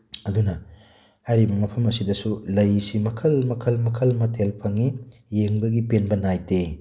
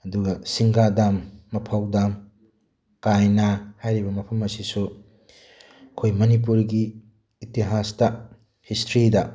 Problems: none marked